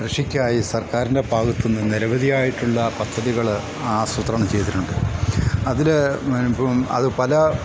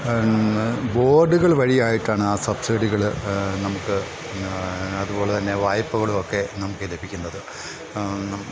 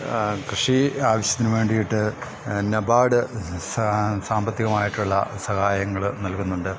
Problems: background sounds at intervals